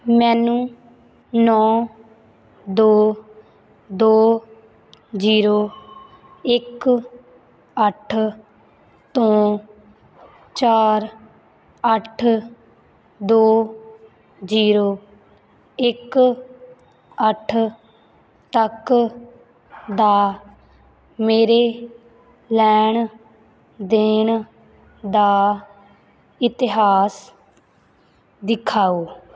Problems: background sounds at intervals